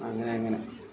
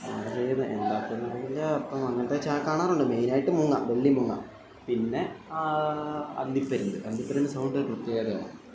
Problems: constant background noise, low volume